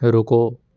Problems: none marked